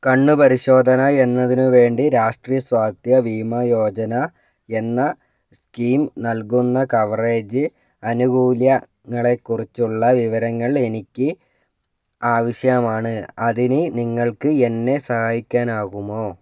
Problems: none marked